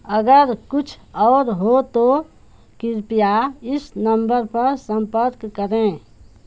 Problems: none marked